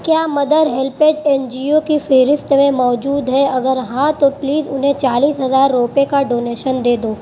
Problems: constant background noise